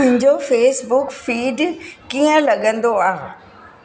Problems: constant background noise